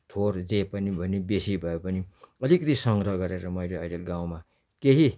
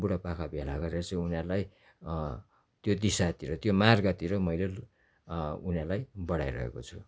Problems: none marked